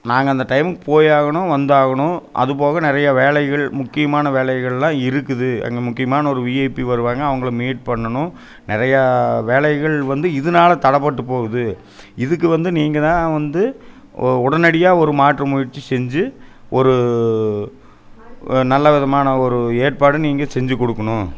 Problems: none marked